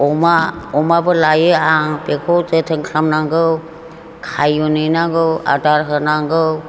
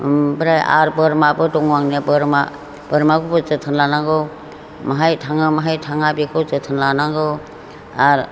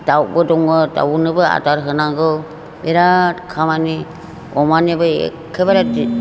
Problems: none marked